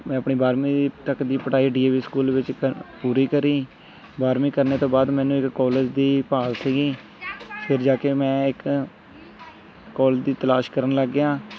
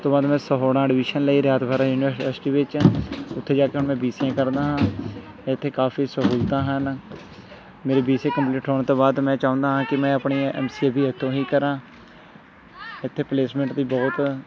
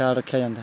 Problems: constant background noise, continuous background conversations